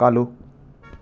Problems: background sounds at intervals